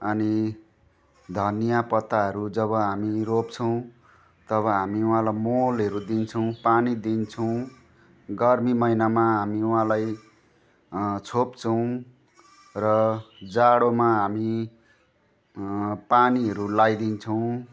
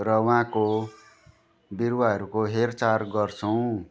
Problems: constant background noise